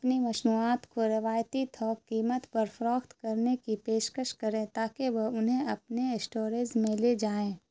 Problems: constant background noise